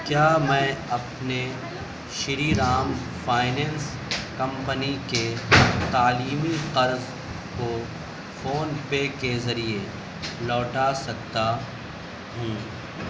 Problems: constant background noise, background conversations at intervals